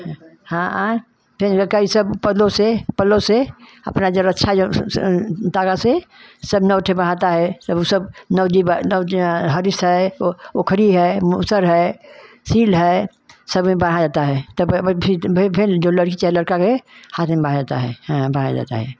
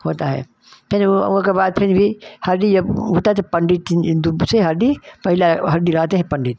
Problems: none marked